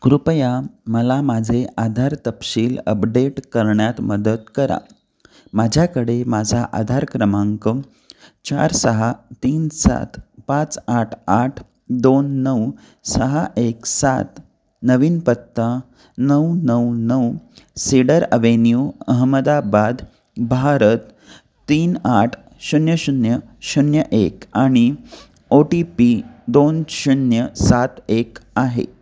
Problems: none marked